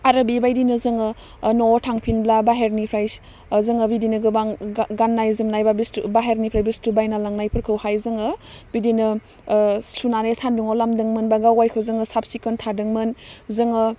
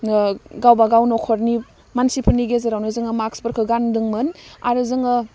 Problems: none marked